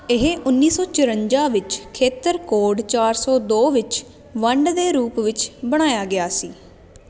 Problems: constant background noise